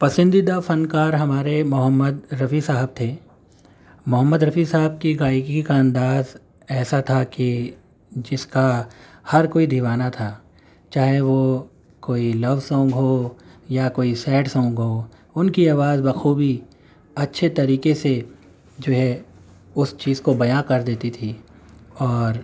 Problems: none marked